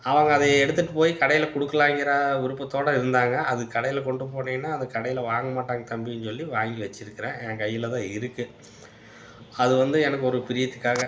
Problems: none marked